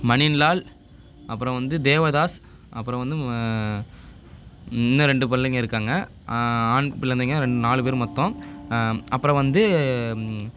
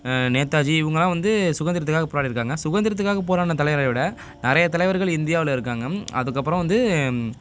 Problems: none marked